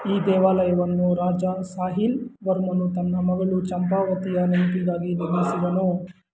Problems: constant background noise